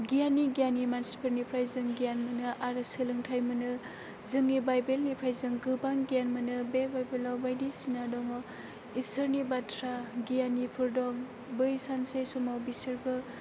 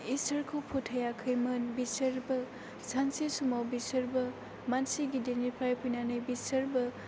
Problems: constant background noise